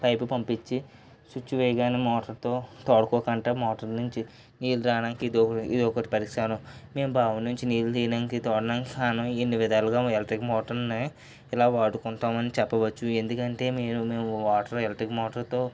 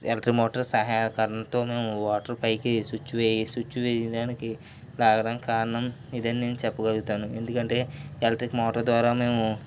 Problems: background sounds at intervals, low volume